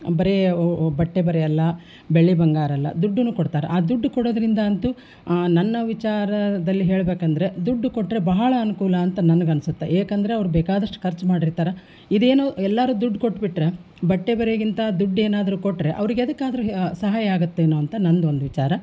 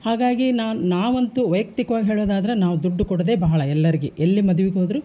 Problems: none marked